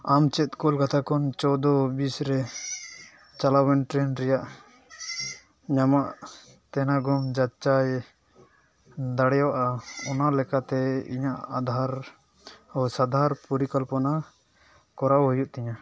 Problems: background sounds at intervals